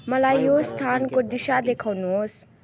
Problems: continuous background conversations